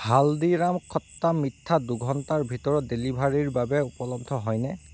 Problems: background sounds at intervals